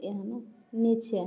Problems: low volume